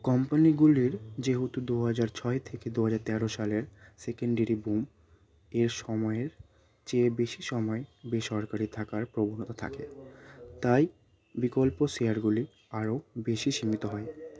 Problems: constant background noise, continuous background conversations